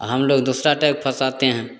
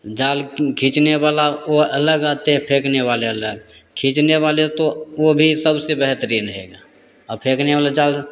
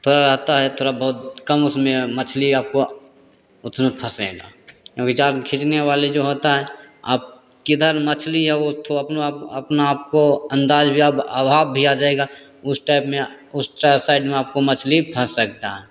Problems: constant background noise, echo